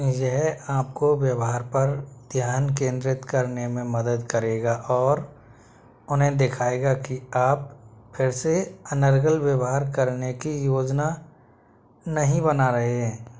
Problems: constant background noise